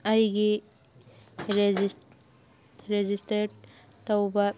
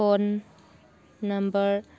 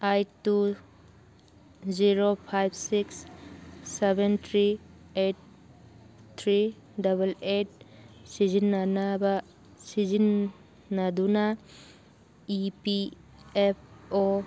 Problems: background sounds at intervals